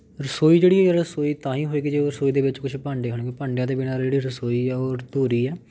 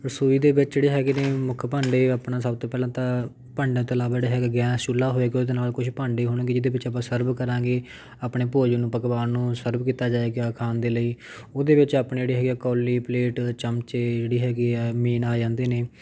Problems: background sounds at intervals